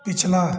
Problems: none marked